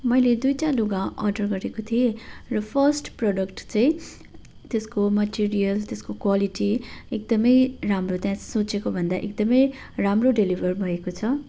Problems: none marked